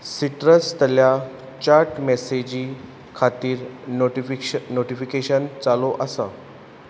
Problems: none marked